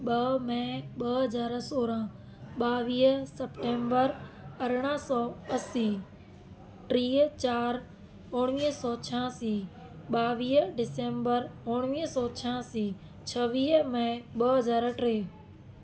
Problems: constant background noise